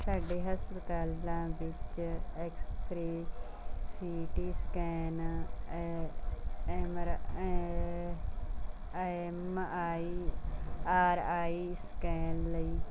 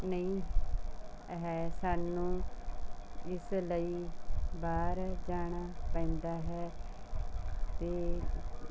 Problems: background sounds at intervals